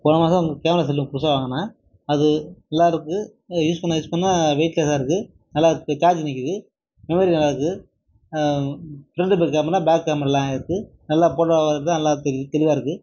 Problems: none marked